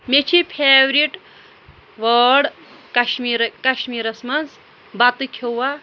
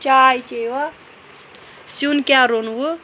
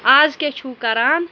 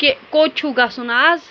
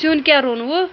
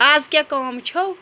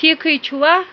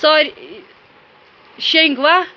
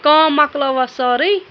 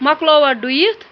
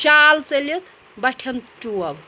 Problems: constant background noise, background conversations at intervals